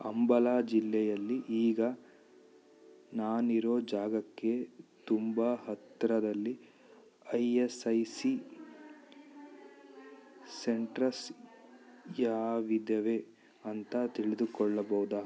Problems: none marked